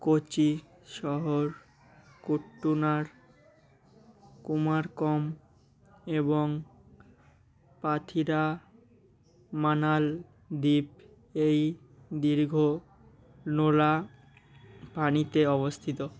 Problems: none marked